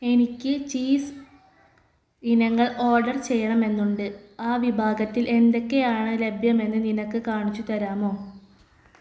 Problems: background sounds at intervals